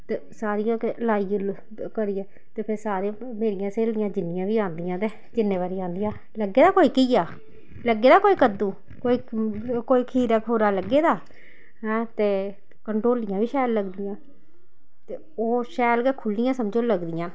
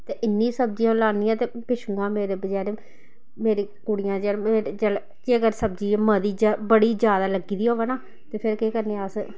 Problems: none marked